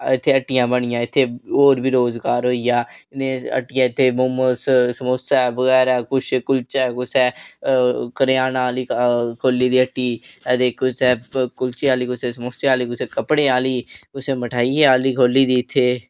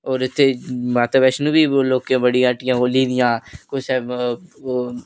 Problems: none marked